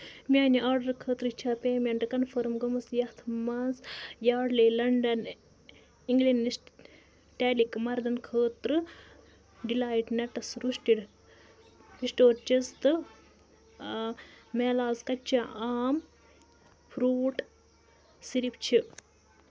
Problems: none marked